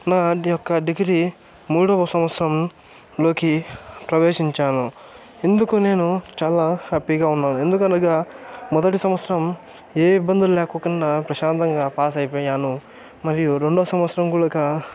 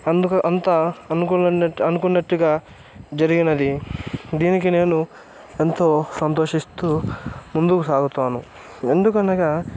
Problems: none marked